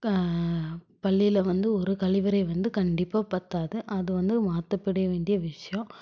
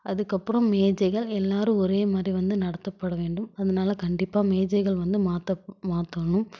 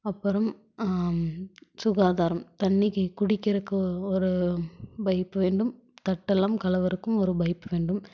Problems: none marked